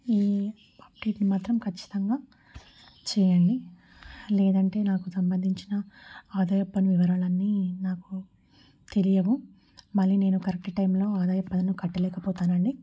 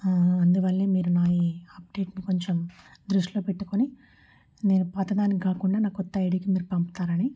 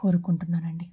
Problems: none marked